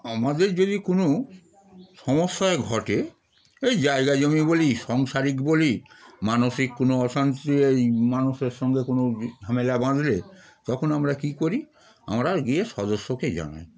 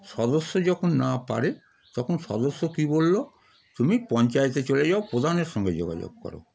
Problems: constant background noise, continuous background conversations